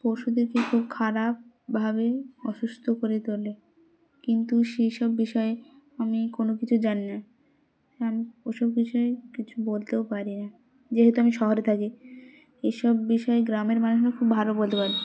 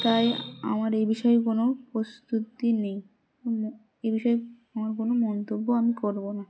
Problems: constant background noise, background conversations at intervals